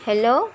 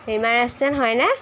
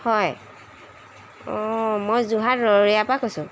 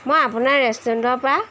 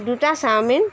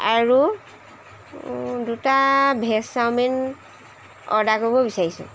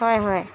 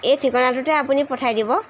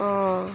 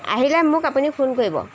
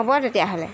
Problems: constant background noise